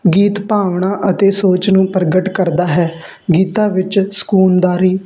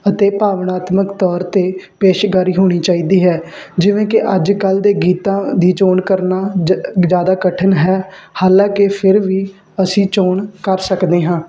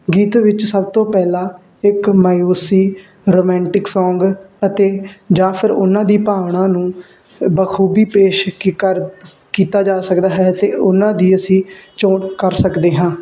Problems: constant background noise